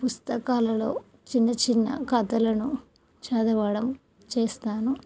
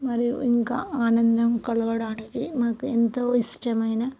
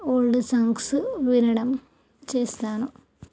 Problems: none marked